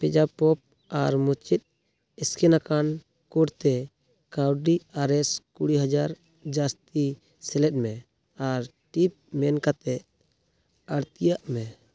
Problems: none marked